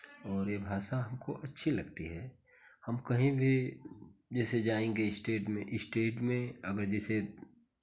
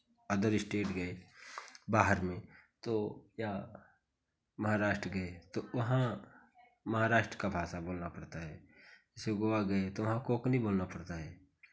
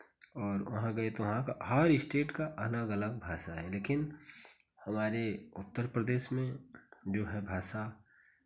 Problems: constant background noise, background conversations at intervals